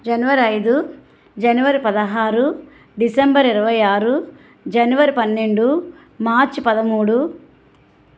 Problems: none marked